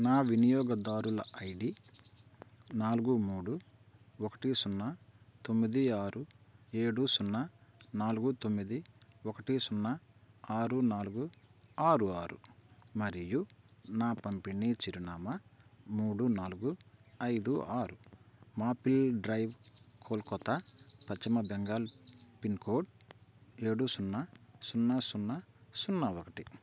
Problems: constant background noise